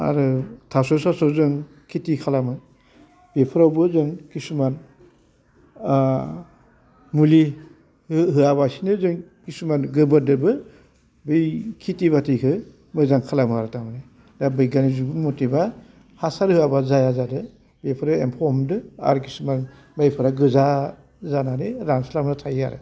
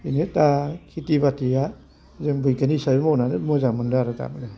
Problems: constant background noise